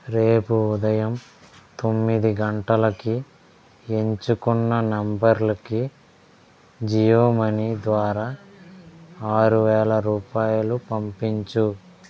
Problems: background conversations at intervals